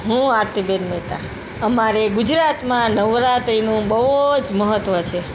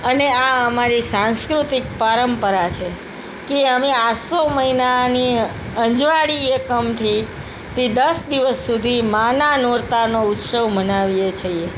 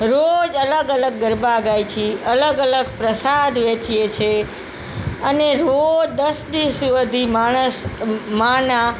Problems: constant background noise